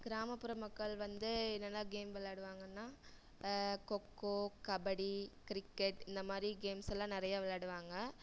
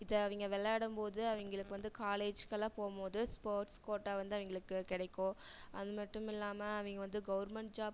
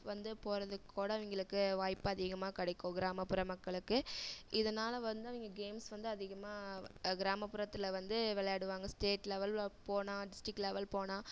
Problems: none marked